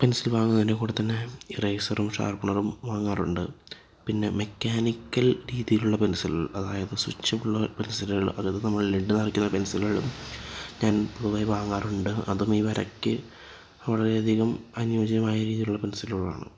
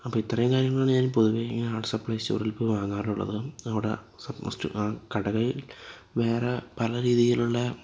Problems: background sounds at intervals, low volume